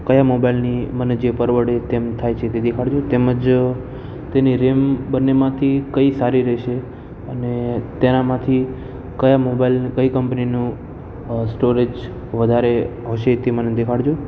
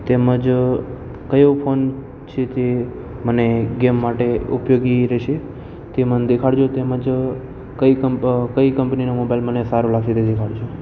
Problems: constant background noise